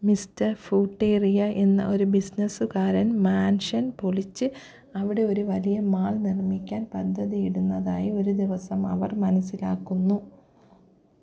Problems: low volume